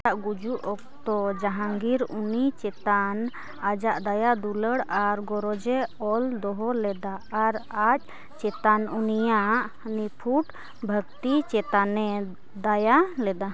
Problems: background sounds at intervals, background conversations at intervals